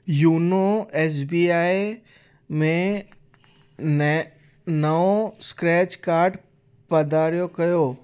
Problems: constant background noise, echo